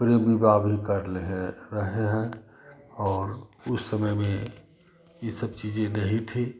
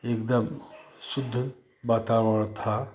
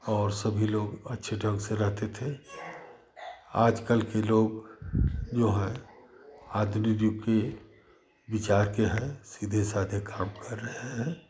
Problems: none marked